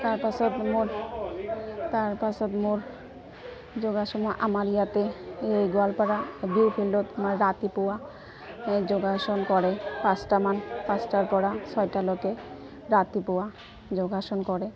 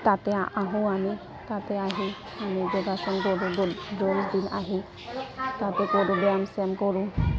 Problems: constant background noise, continuous background conversations